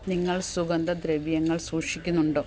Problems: none marked